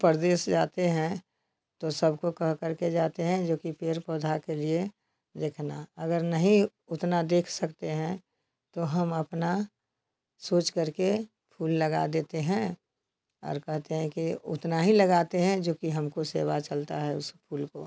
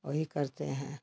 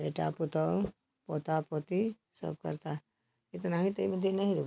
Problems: none marked